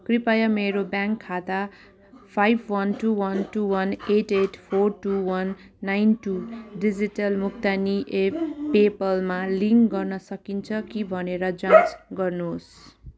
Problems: constant background noise